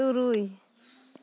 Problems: none marked